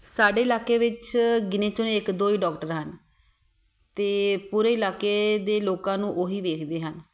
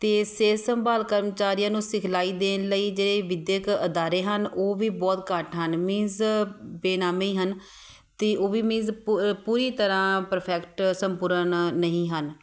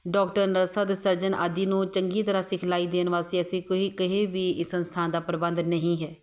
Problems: none marked